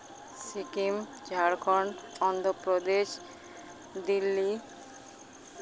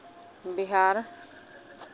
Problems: constant background noise, background conversations at intervals